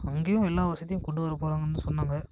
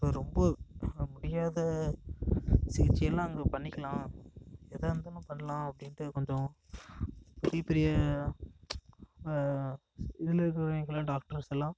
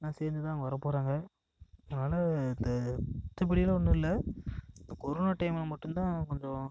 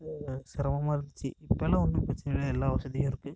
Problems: echo